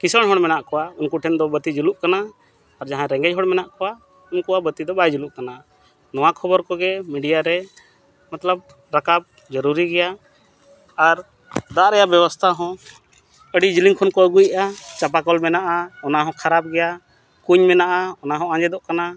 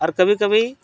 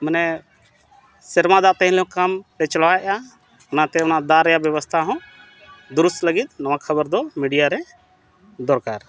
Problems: constant background noise